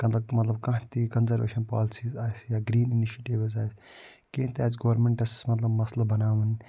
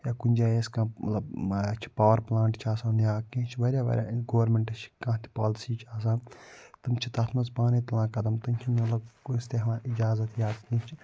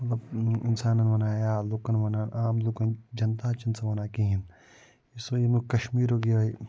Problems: low volume